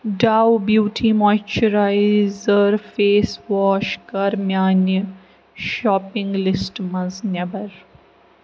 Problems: constant background noise